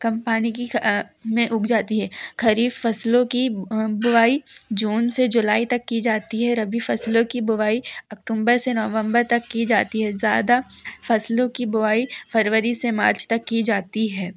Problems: none marked